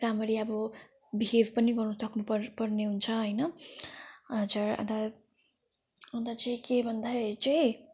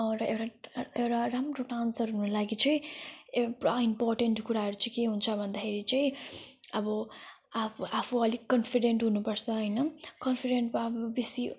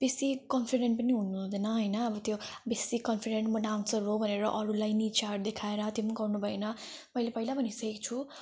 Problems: none marked